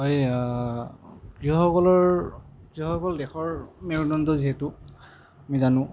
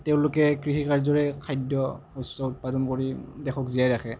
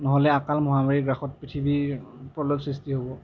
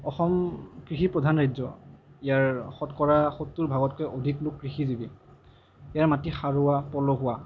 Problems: none marked